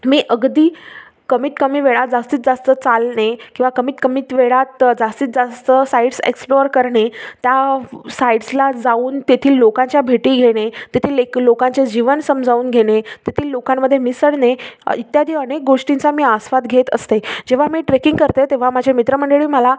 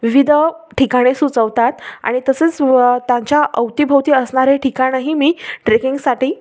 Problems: none marked